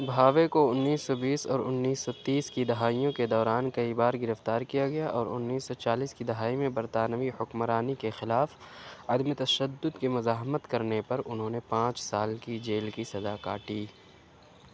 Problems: none marked